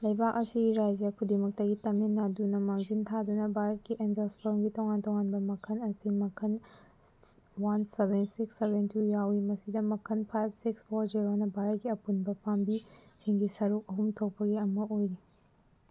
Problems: none marked